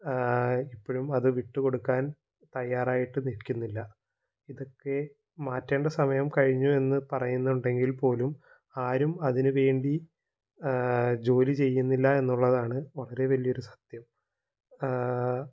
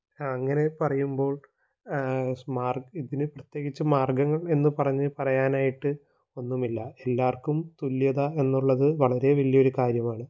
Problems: low volume